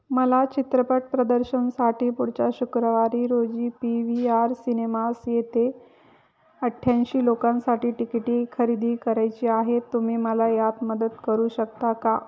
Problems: background sounds at intervals, background conversations at intervals